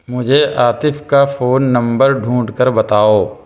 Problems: background sounds at intervals